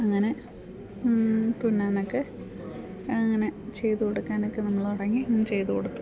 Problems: background sounds at intervals